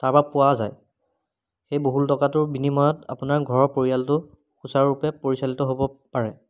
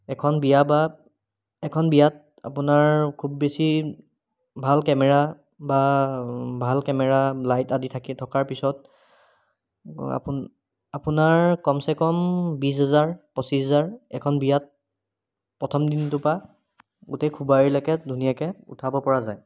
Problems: background sounds at intervals